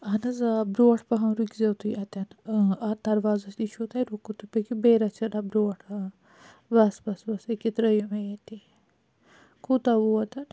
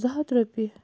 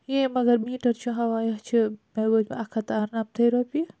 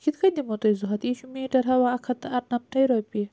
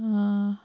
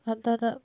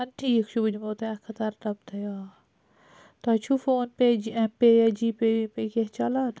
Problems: none marked